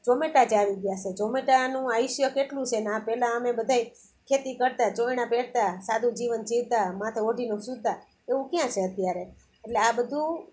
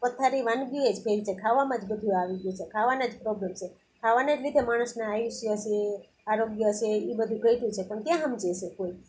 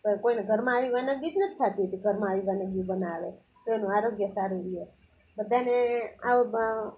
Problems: none marked